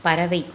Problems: constant background noise